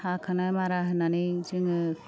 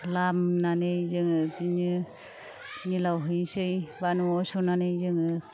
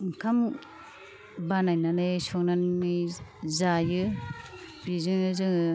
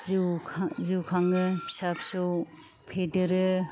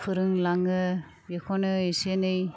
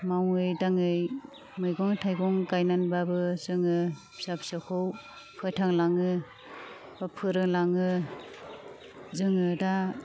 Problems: none marked